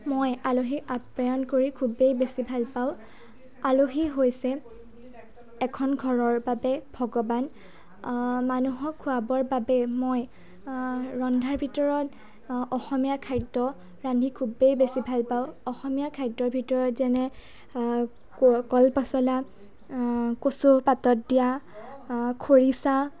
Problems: background conversations at intervals